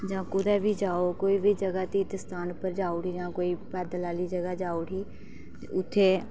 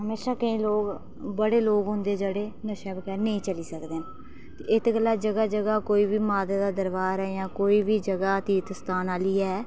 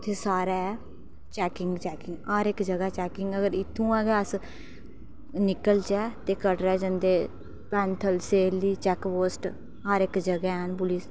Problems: background sounds at intervals, low volume